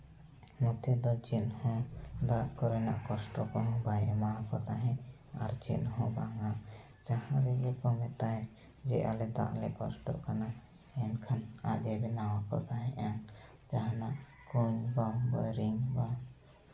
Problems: background sounds at intervals, echo